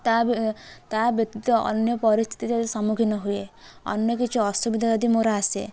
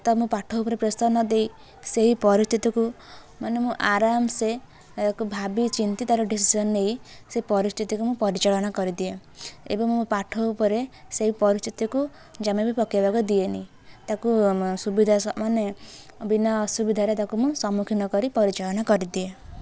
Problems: none marked